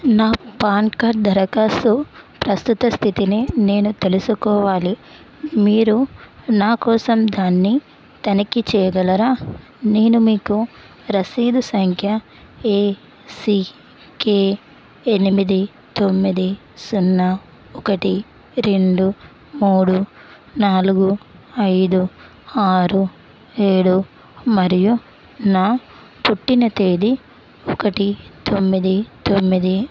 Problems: constant background noise